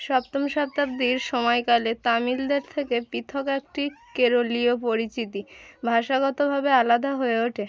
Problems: constant background noise